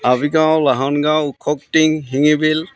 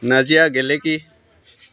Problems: constant background noise, background conversations at intervals